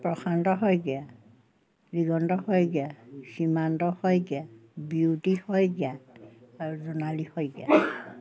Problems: background sounds at intervals